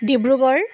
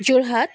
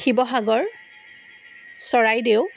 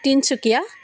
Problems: background sounds at intervals